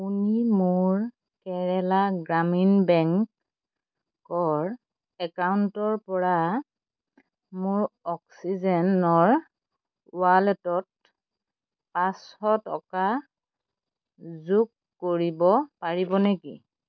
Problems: constant background noise